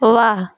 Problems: none marked